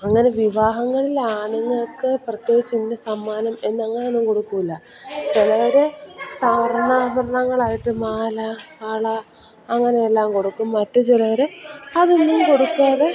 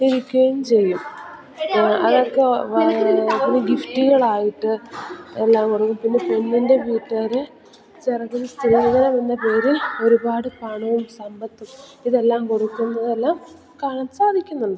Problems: background sounds at intervals, background conversations at intervals